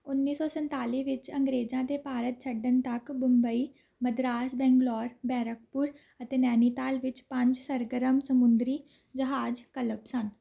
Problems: none marked